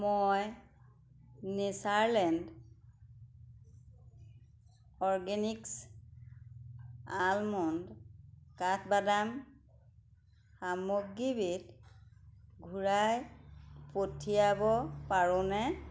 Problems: none marked